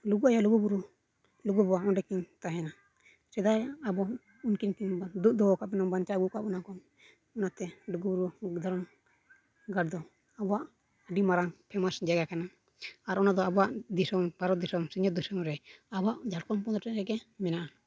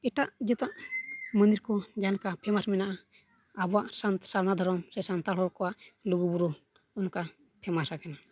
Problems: none marked